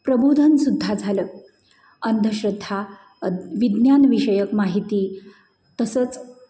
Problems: constant background noise